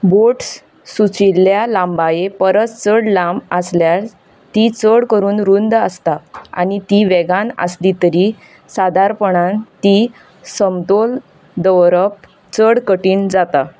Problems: background sounds at intervals